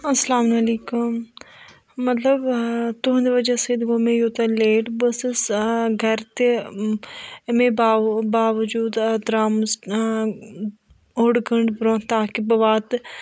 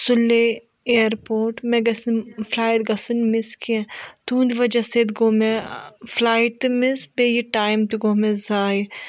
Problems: background conversations at intervals